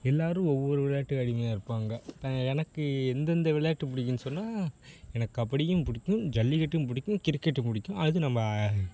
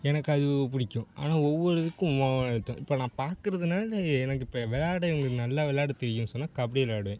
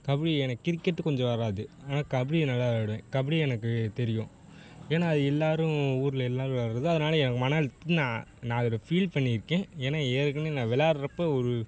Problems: none marked